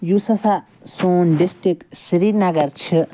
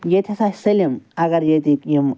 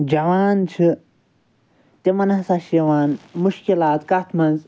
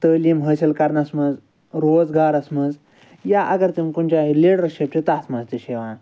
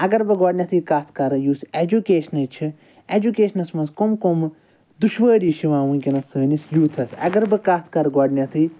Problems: none marked